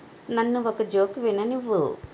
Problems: constant background noise